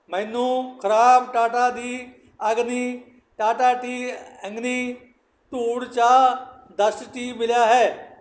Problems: none marked